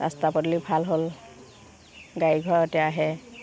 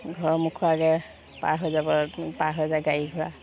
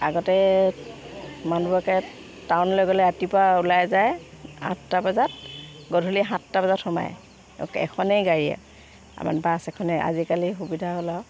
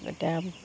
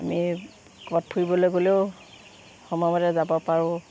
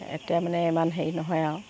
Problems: none marked